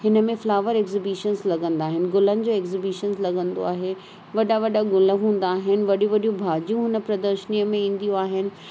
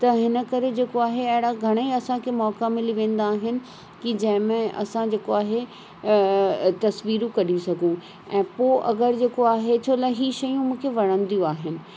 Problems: constant background noise